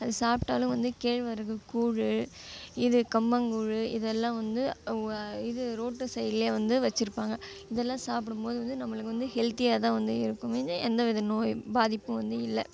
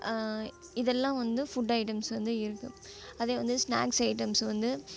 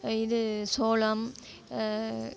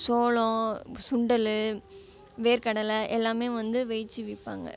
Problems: none marked